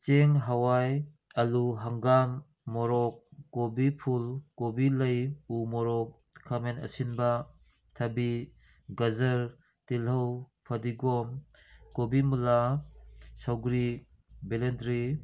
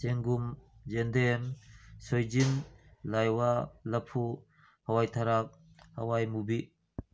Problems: none marked